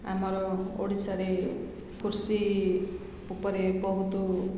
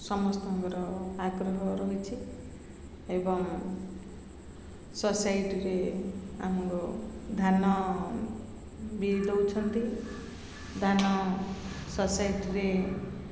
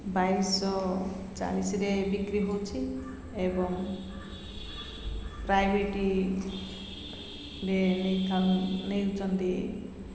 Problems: constant background noise, continuous background conversations